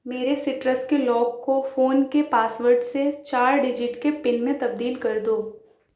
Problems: none marked